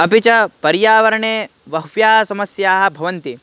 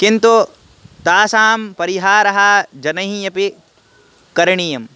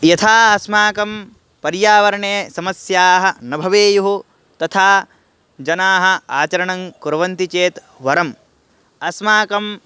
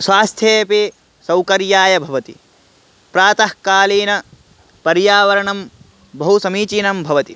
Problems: background sounds at intervals